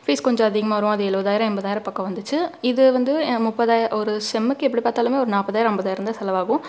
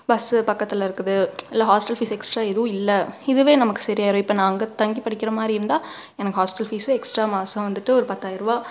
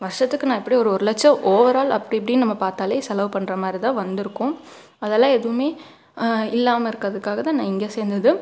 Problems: background sounds at intervals